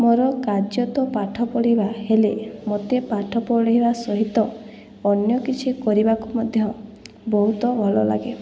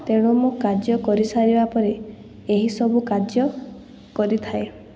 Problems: background conversations at intervals